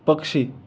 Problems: none marked